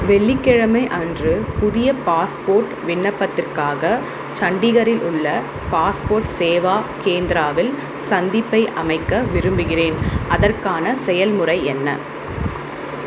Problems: constant background noise